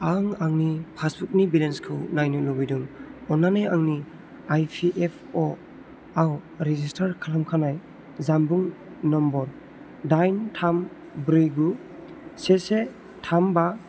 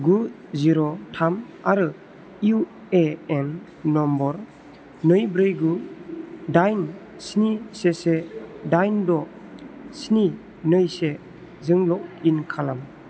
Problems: constant background noise